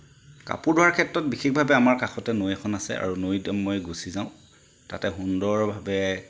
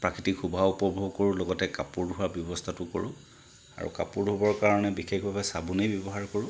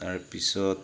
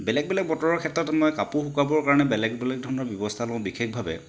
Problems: background sounds at intervals